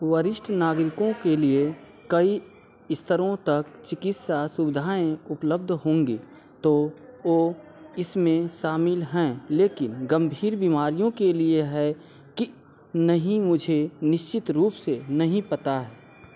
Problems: constant background noise